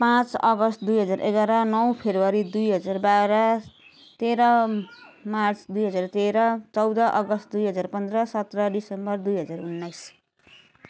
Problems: none marked